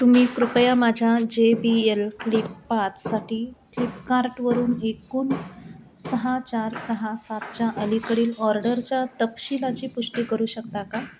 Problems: constant background noise, echo